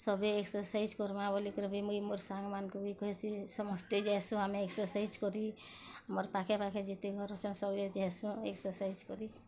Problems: constant background noise